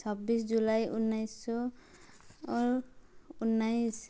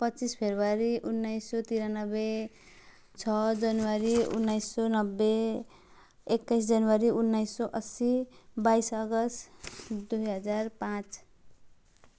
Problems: background sounds at intervals